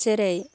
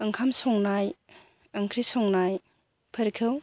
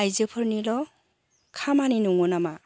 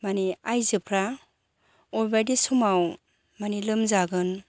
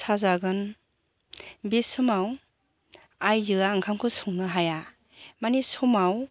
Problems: none marked